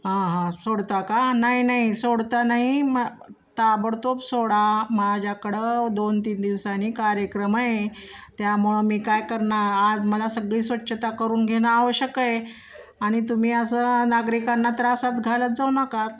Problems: none marked